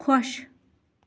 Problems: background sounds at intervals